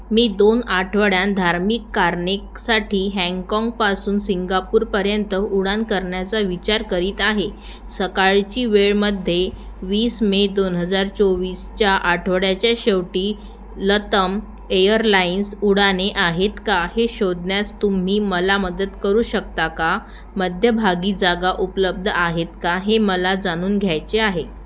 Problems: none marked